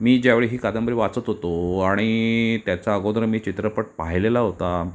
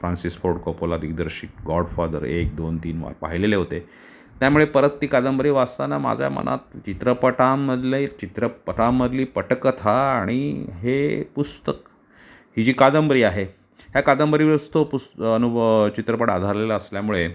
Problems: none marked